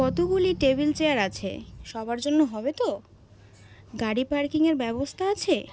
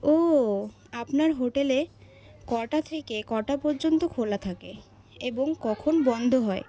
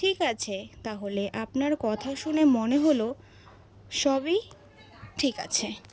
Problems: none marked